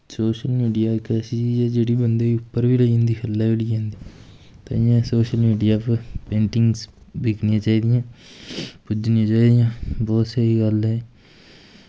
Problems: constant background noise